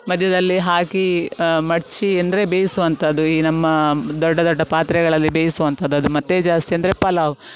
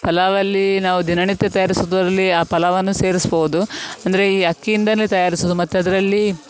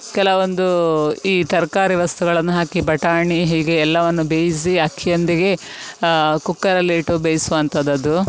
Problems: none marked